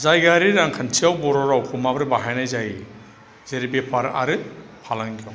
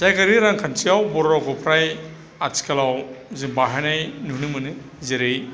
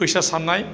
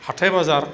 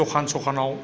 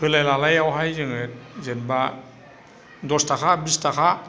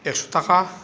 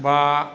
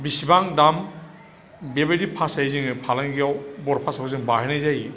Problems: none marked